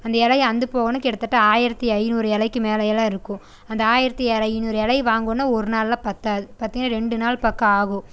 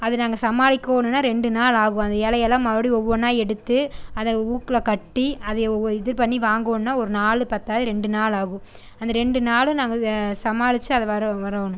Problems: constant background noise